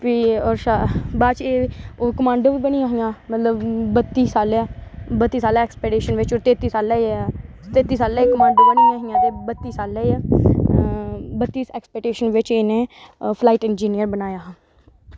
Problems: none marked